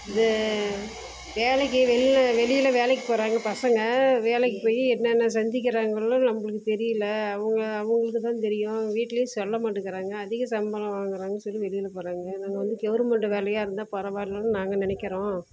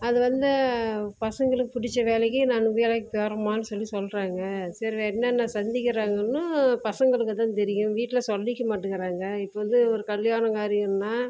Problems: background sounds at intervals